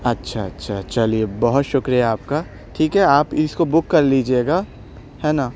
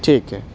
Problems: constant background noise